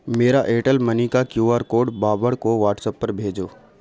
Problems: constant background noise